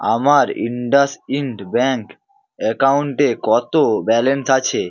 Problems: none marked